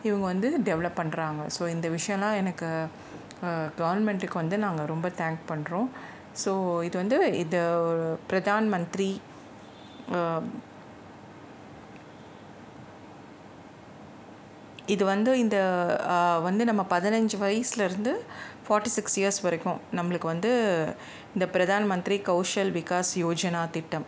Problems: background sounds at intervals